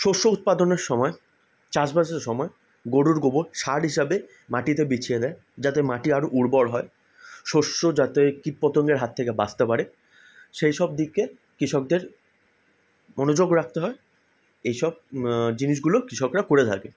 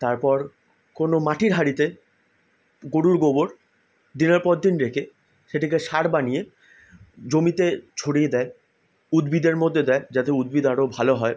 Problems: none marked